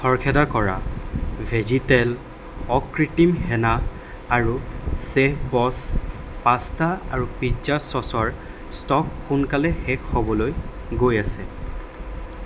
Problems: constant background noise